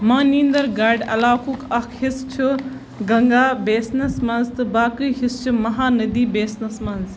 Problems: constant background noise